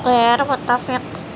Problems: constant background noise